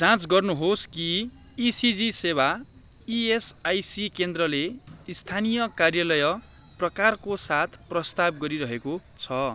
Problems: constant background noise